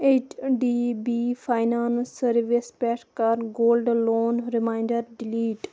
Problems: constant background noise